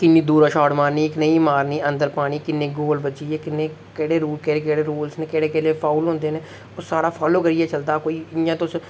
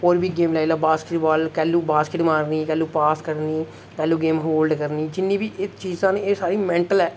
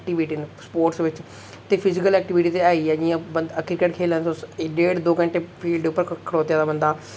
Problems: none marked